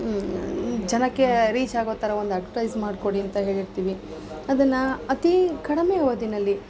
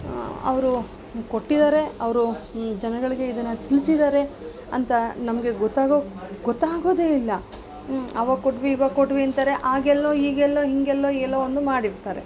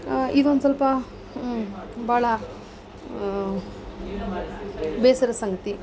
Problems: none marked